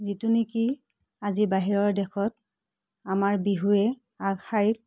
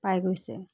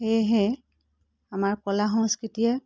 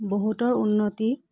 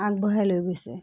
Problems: none marked